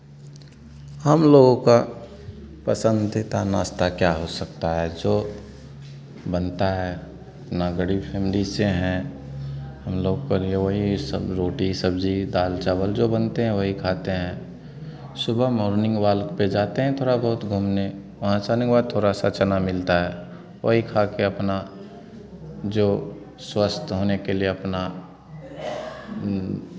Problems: none marked